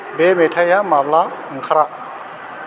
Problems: constant background noise